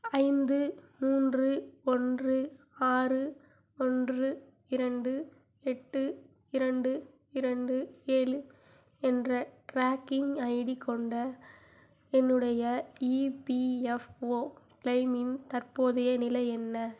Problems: low volume